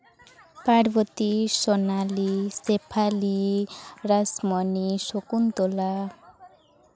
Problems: continuous background conversations